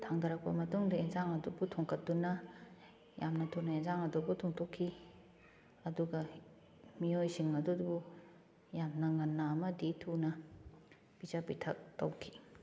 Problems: none marked